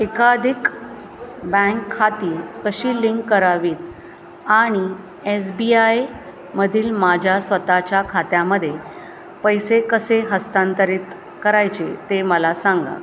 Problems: constant background noise, continuous background conversations